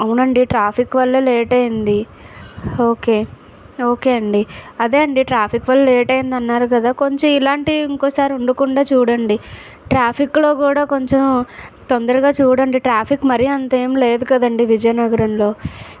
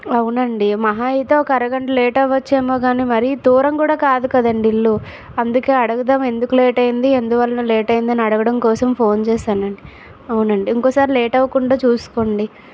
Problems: none marked